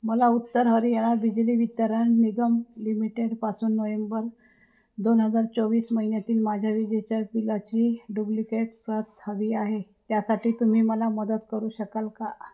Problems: none marked